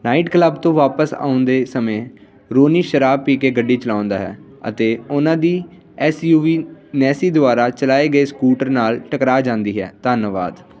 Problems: constant background noise